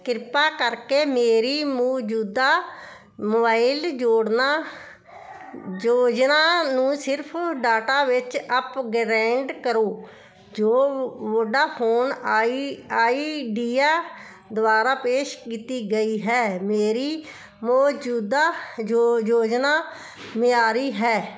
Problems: constant background noise